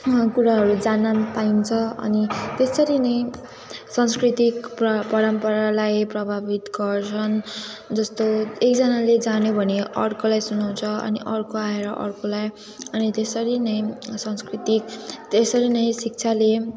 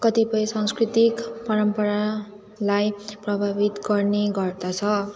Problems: constant background noise, continuous background conversations